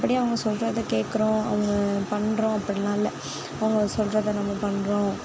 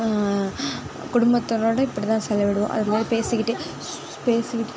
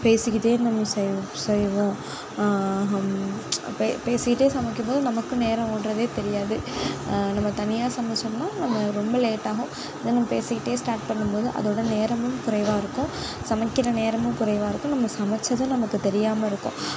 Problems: none marked